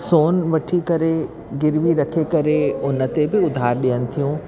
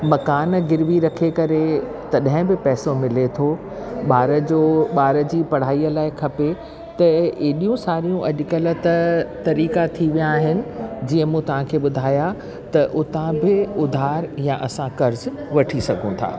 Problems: constant background noise